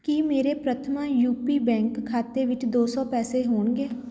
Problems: background conversations at intervals